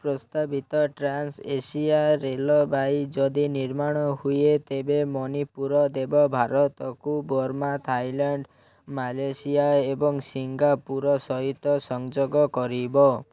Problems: none marked